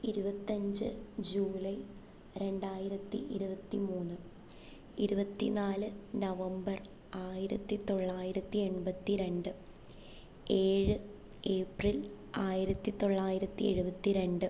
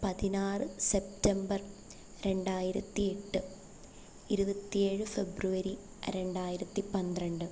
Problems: constant background noise, low volume